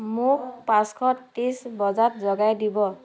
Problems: constant background noise